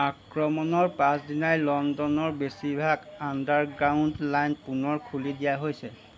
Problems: background conversations at intervals